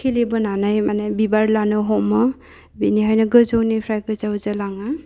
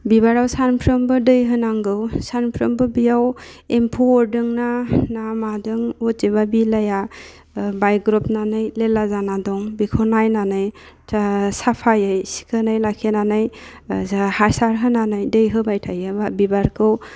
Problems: constant background noise